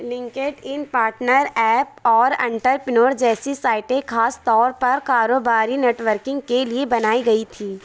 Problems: none marked